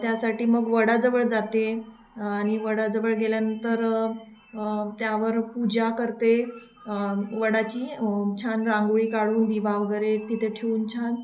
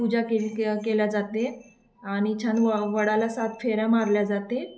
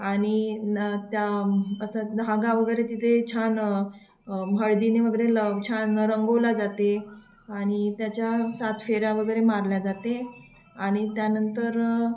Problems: constant background noise